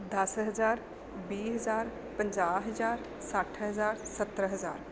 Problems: none marked